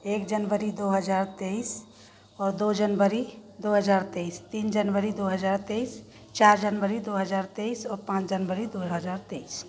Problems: background sounds at intervals, continuous background conversations